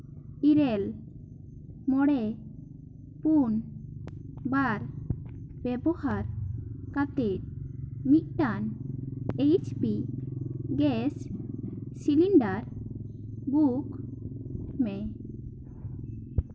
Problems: none marked